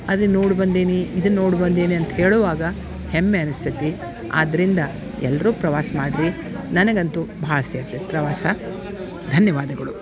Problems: background sounds at intervals